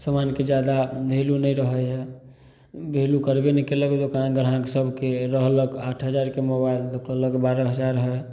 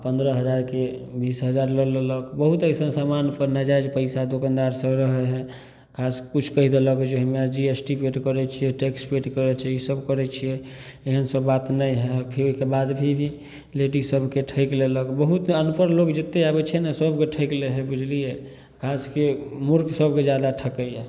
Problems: none marked